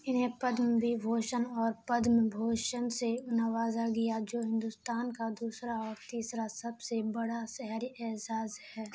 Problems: constant background noise